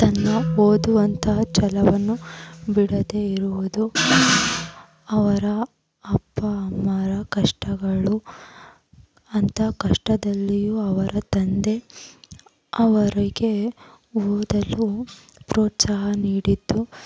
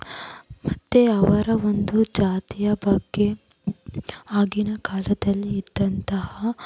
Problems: background sounds at intervals